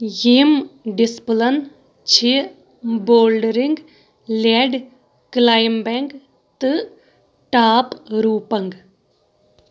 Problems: background sounds at intervals